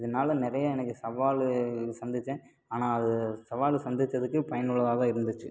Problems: none marked